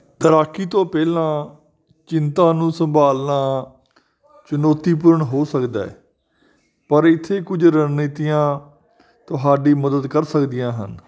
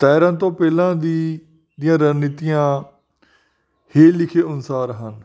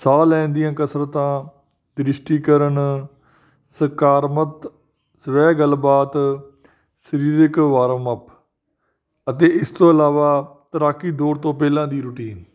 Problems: none marked